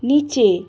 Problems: constant background noise